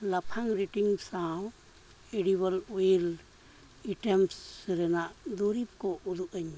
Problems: none marked